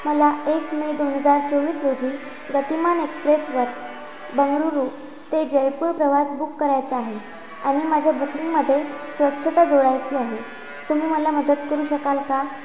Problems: constant background noise